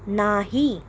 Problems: background sounds at intervals